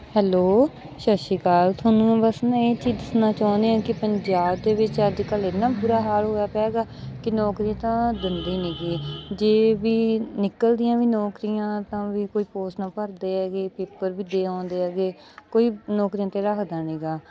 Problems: background sounds at intervals, background conversations at intervals